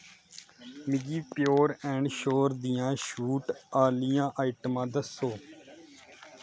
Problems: constant background noise